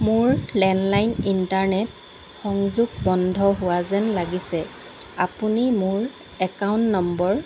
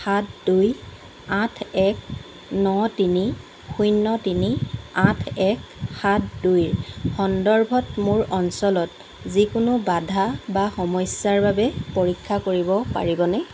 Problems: constant background noise